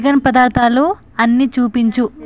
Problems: constant background noise, background conversations at intervals